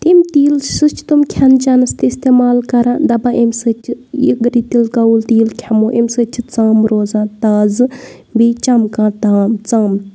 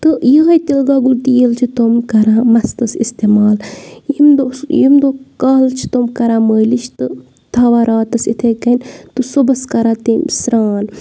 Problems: none marked